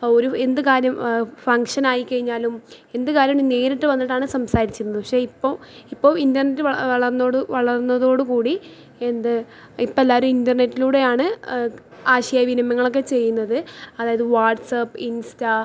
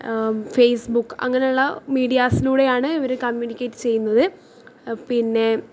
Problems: low volume